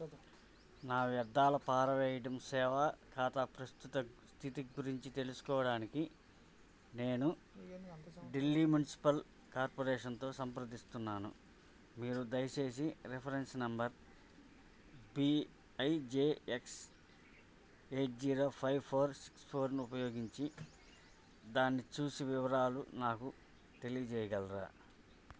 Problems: low volume